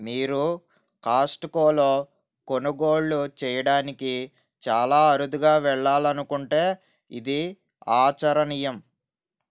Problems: none marked